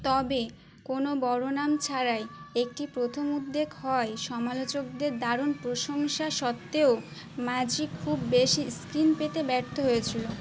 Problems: constant background noise, continuous background conversations